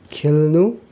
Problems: continuous background conversations